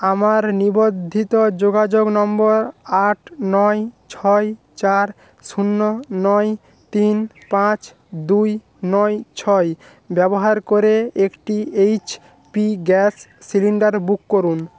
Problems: background sounds at intervals